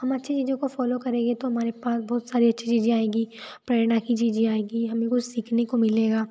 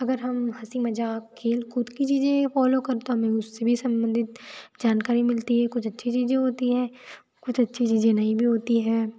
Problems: constant background noise